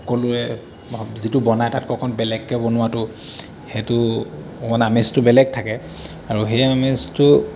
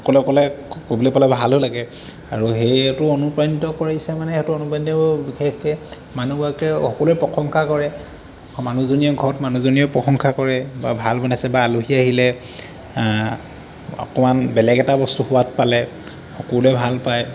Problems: constant background noise